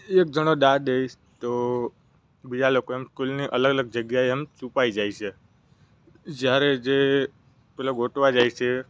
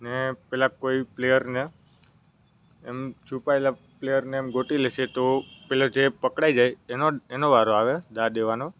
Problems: none marked